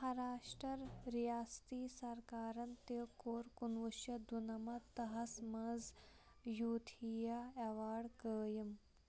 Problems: low volume